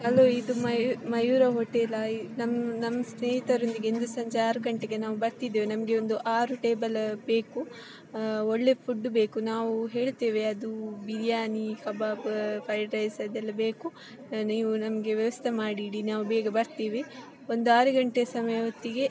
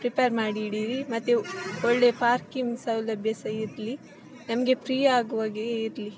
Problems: background sounds at intervals